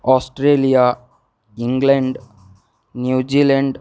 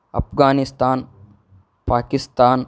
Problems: none marked